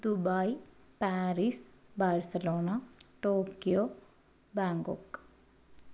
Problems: low volume